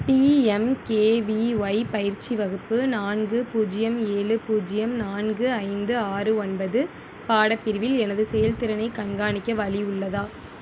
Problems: constant background noise